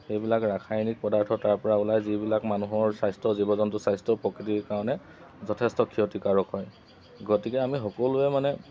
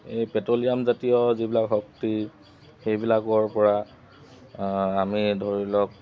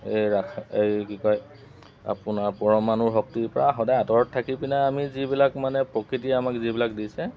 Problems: constant background noise